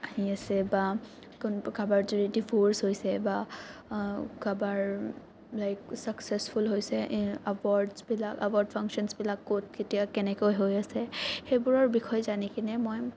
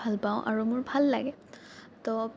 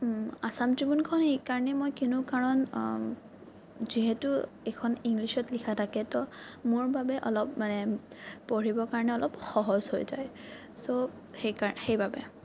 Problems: none marked